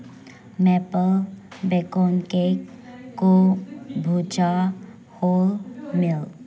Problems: background sounds at intervals, background conversations at intervals